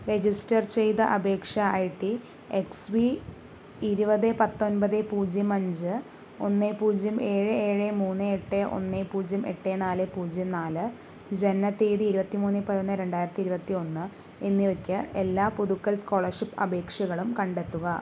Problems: low volume